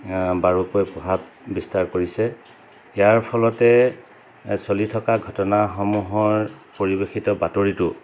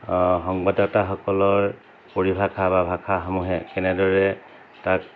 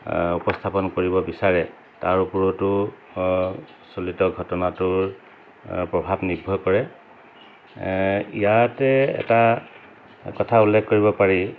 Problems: constant background noise